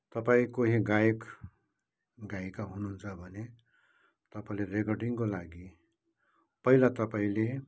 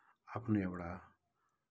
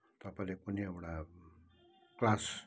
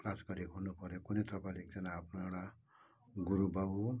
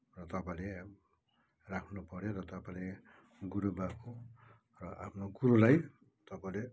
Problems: background sounds at intervals